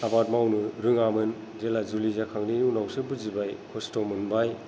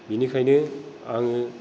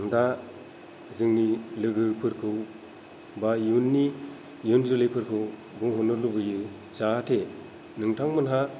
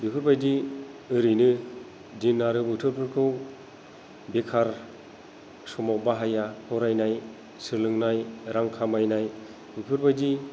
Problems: low volume